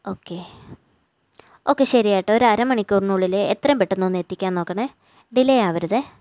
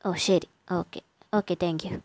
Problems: none marked